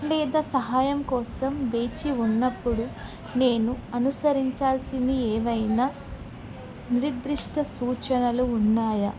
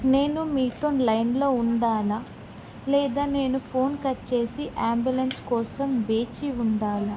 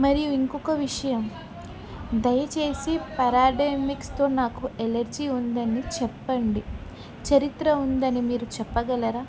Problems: background conversations at intervals